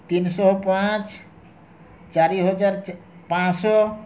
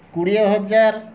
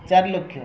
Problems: background sounds at intervals, background conversations at intervals